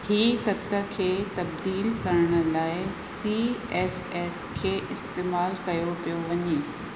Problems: constant background noise, echo